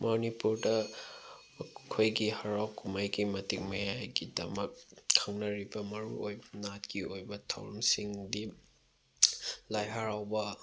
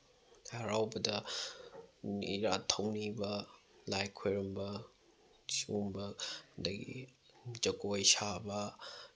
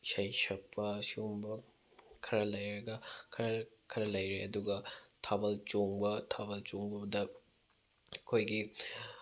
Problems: none marked